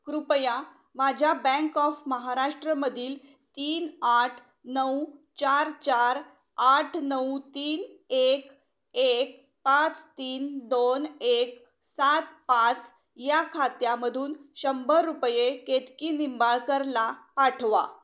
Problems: none marked